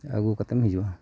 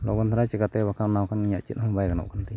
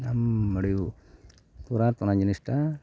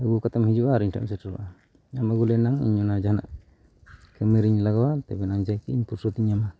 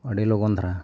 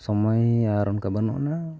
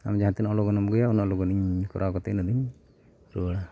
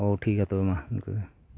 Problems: background sounds at intervals